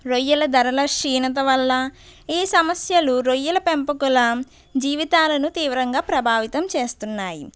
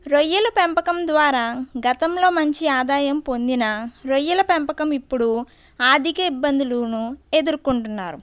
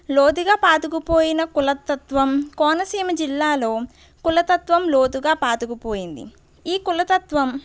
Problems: background sounds at intervals